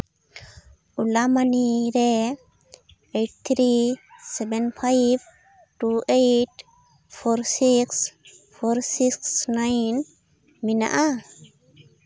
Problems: background sounds at intervals